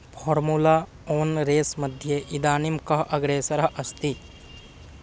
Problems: background sounds at intervals